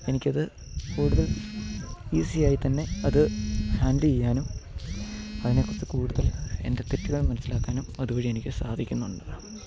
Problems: constant background noise